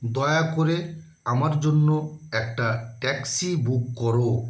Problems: constant background noise